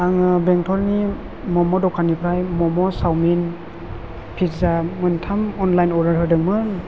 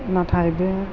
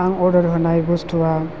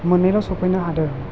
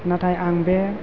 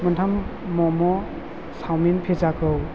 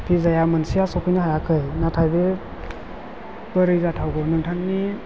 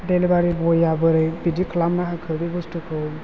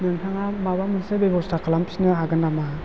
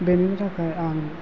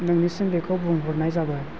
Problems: constant background noise